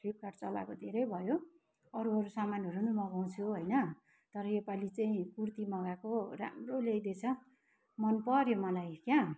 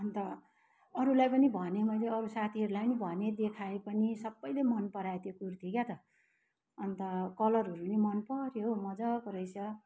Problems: none marked